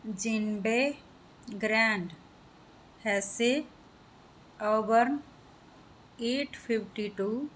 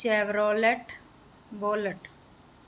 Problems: background sounds at intervals